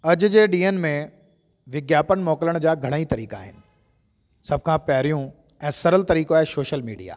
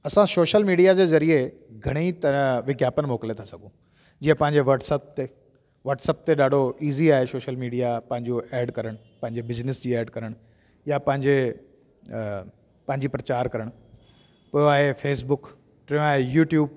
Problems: constant background noise